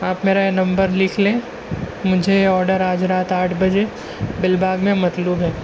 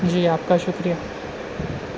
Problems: constant background noise